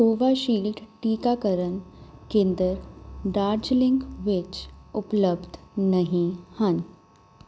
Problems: none marked